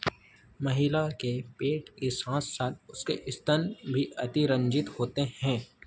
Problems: none marked